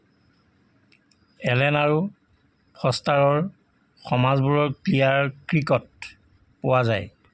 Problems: constant background noise